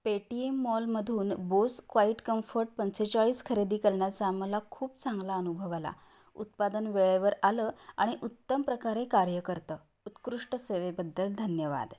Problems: background sounds at intervals